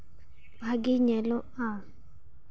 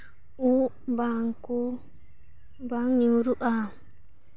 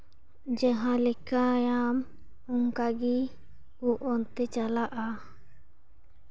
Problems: background sounds at intervals